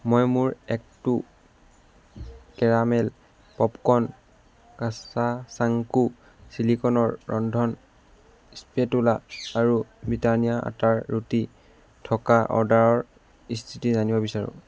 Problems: background sounds at intervals